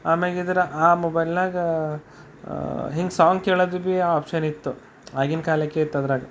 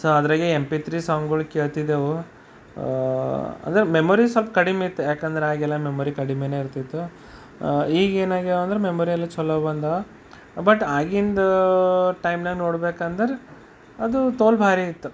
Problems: constant background noise, background conversations at intervals